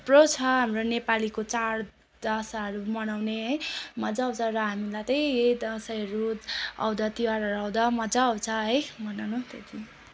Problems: none marked